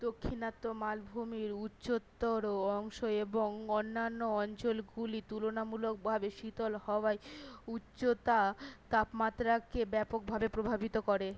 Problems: none marked